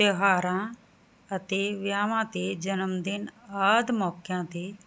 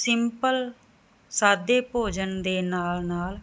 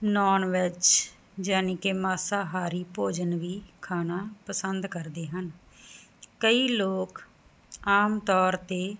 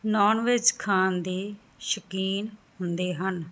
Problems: background sounds at intervals